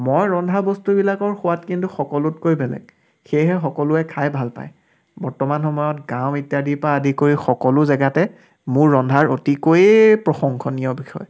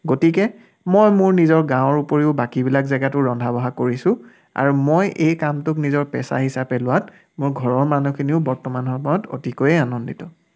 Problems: none marked